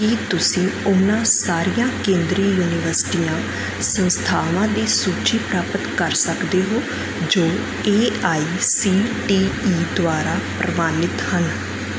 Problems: background sounds at intervals